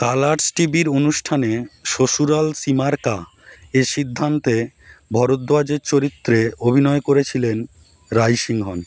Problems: constant background noise